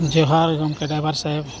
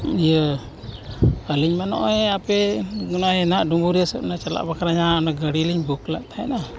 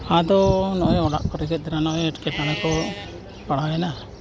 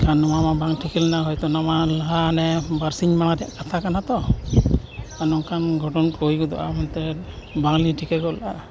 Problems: constant background noise, background conversations at intervals